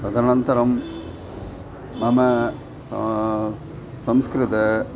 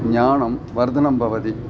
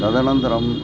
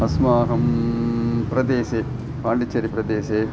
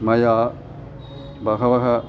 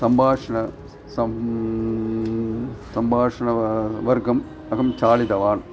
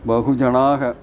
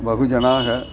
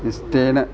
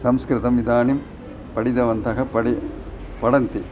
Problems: constant background noise